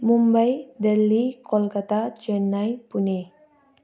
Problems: continuous background conversations